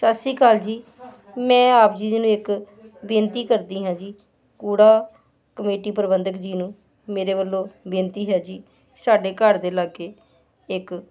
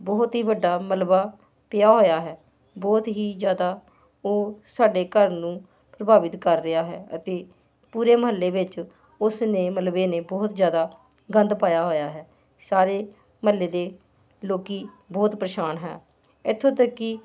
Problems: constant background noise